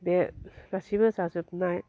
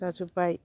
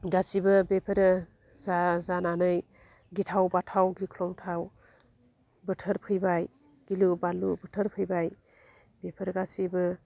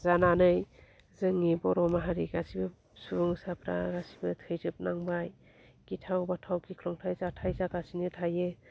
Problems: low volume